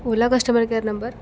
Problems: constant background noise